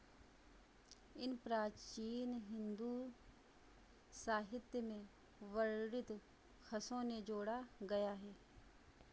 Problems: constant background noise